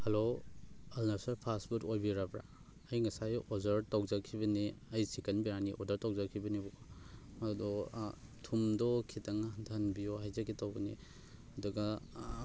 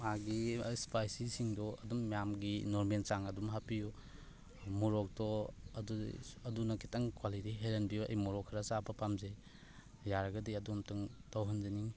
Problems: background sounds at intervals